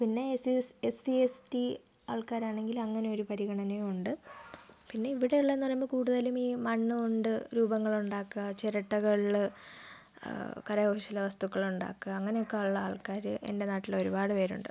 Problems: background sounds at intervals, low volume